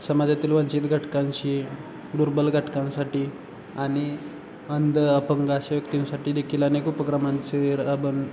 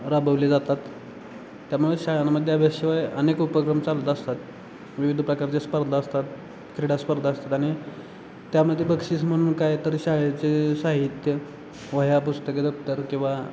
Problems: constant background noise, background conversations at intervals